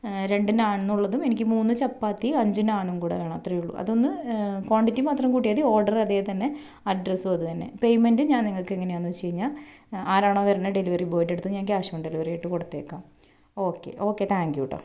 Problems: none marked